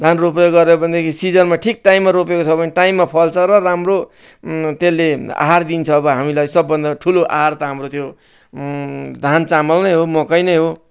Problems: none marked